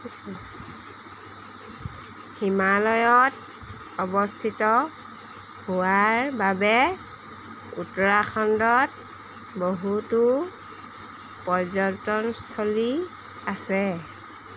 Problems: constant background noise